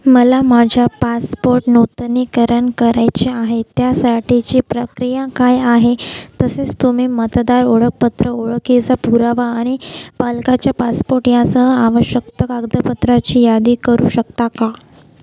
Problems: none marked